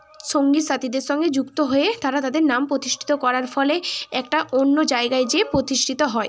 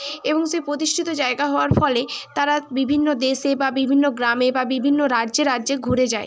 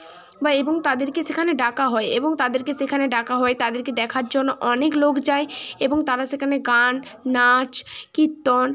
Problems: constant background noise